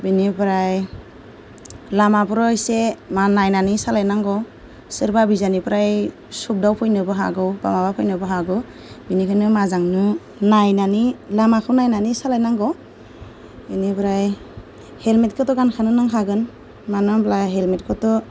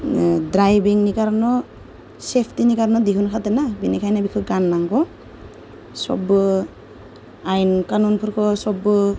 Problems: none marked